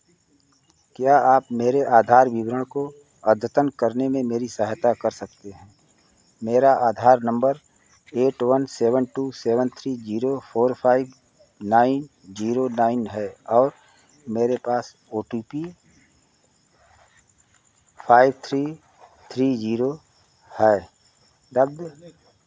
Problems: none marked